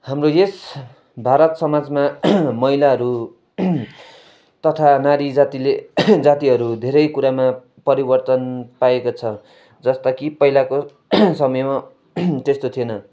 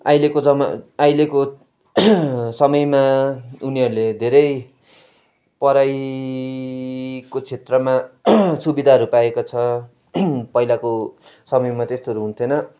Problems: background sounds at intervals